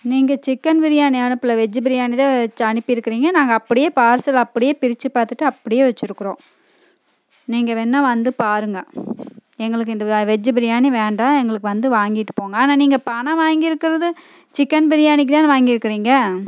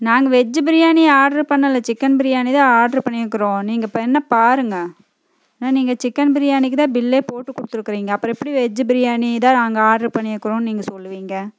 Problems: none marked